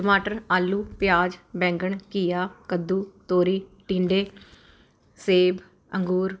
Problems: constant background noise